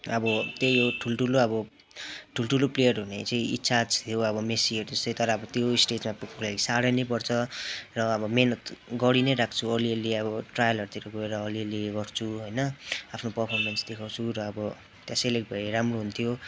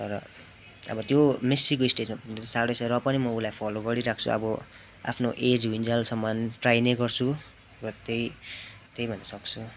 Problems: constant background noise